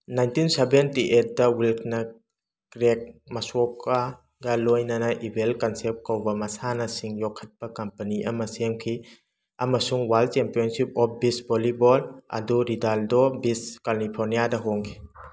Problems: background sounds at intervals